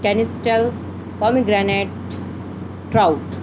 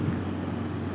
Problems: constant background noise